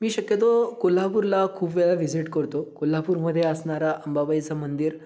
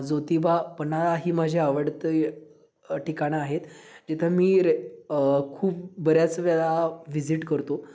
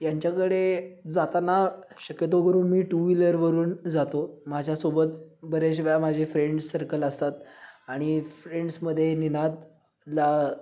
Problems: background sounds at intervals, background conversations at intervals